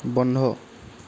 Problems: constant background noise